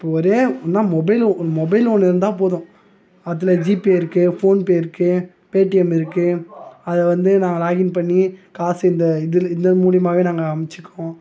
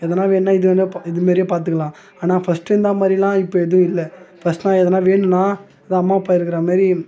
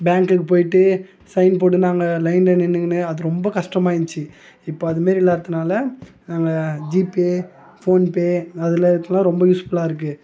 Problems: none marked